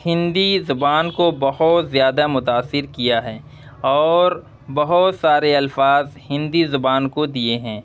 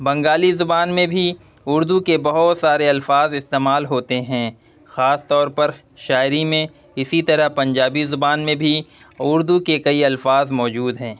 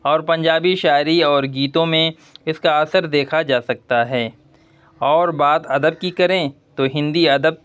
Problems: none marked